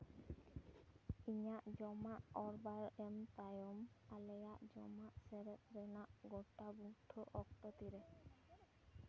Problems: background conversations at intervals, low volume